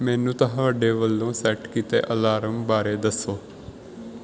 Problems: background sounds at intervals